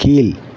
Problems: constant background noise